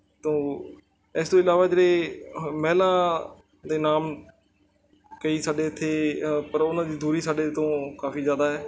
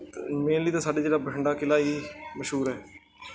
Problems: background sounds at intervals, background conversations at intervals